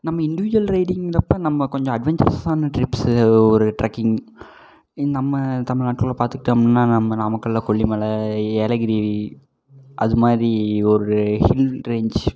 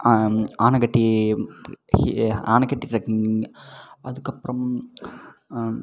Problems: echo